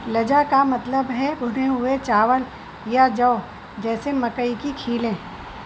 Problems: constant background noise